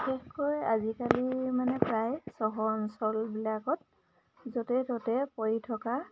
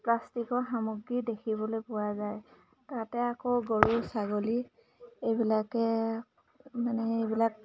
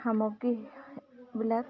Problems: background sounds at intervals